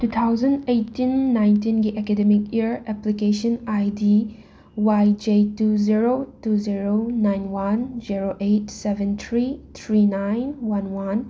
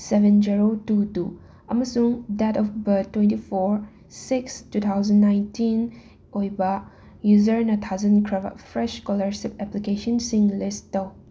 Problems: background sounds at intervals